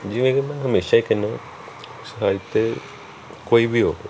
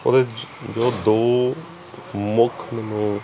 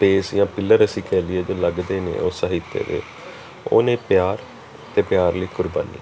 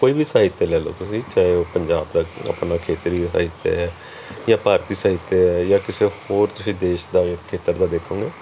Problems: continuous background conversations